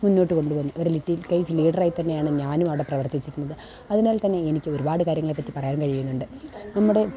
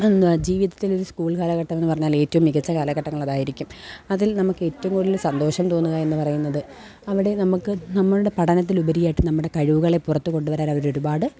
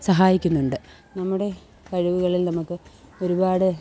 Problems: background sounds at intervals